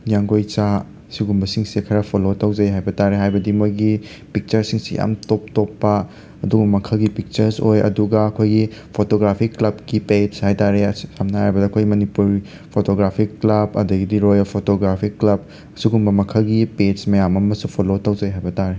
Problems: constant background noise